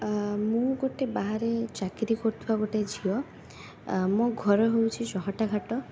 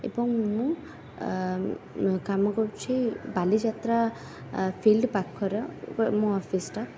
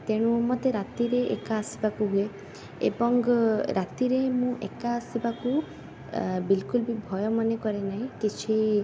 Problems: constant background noise